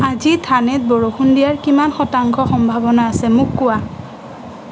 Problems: constant background noise